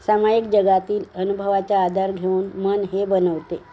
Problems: background sounds at intervals, background conversations at intervals